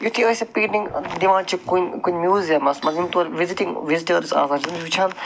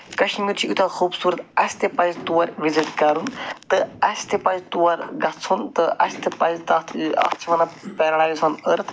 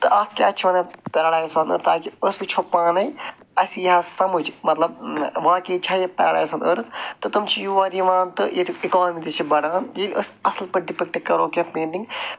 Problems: none marked